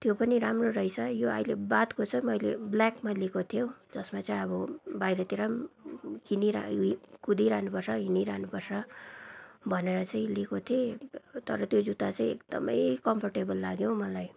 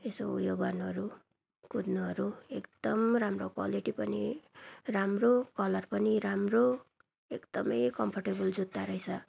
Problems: none marked